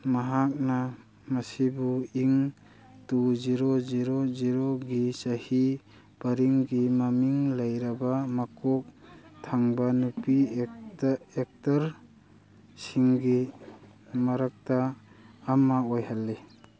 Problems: background conversations at intervals